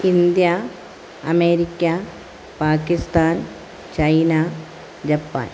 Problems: constant background noise